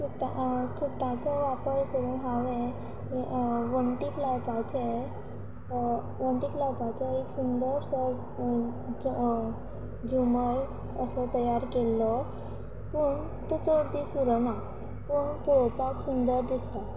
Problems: constant background noise